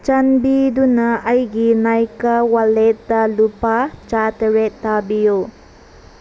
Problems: constant background noise